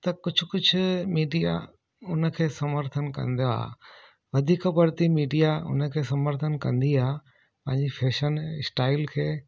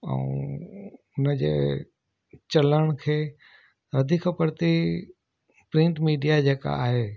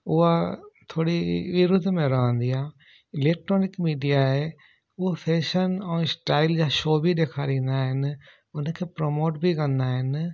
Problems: none marked